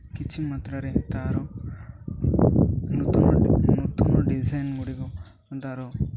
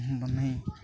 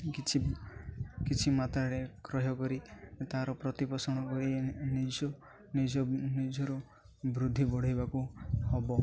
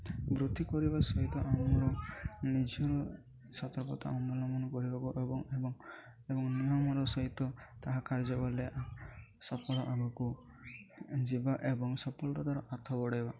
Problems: none marked